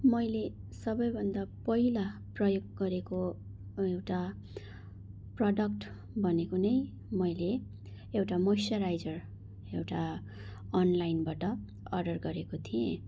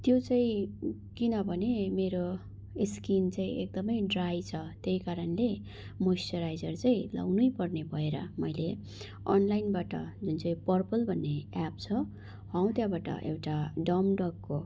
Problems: none marked